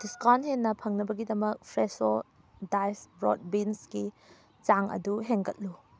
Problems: background sounds at intervals